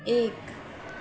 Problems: constant background noise